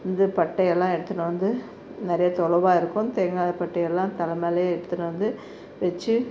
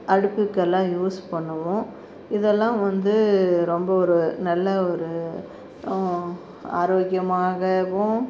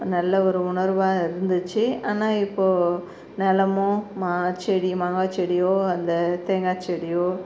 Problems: constant background noise